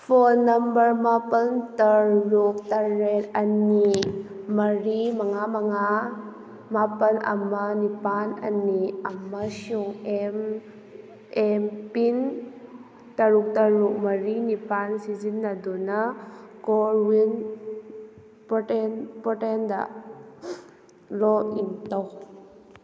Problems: background sounds at intervals